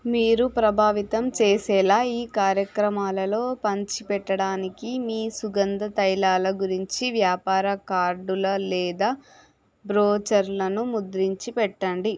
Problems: none marked